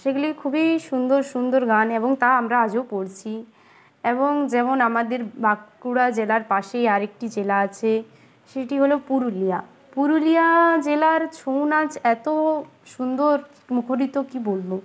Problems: none marked